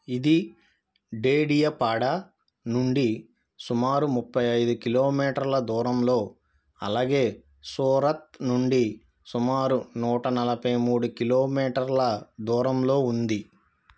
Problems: none marked